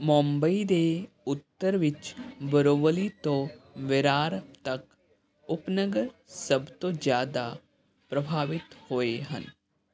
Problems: none marked